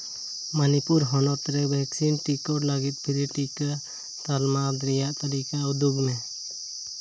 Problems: none marked